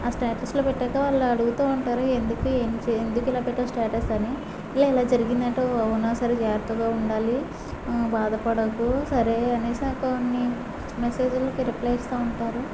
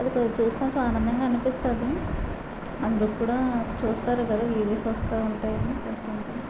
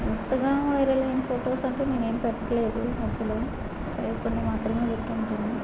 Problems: low volume